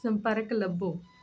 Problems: constant background noise